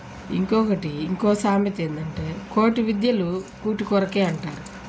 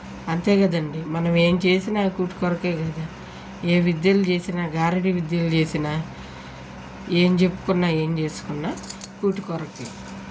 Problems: none marked